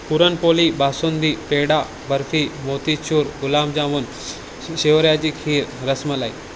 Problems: none marked